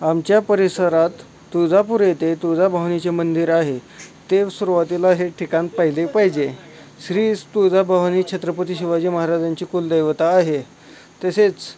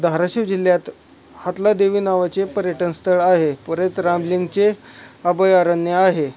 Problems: none marked